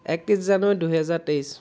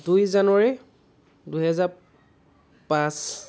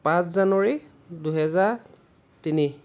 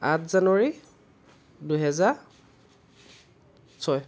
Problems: constant background noise